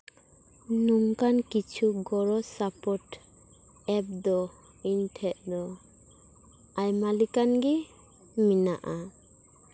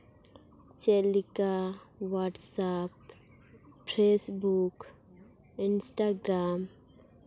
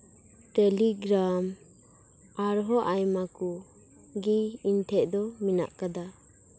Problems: none marked